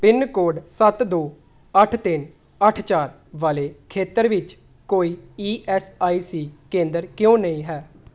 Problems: none marked